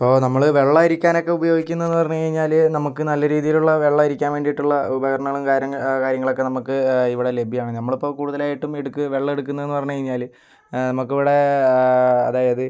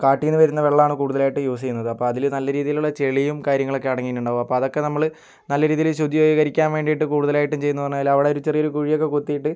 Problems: none marked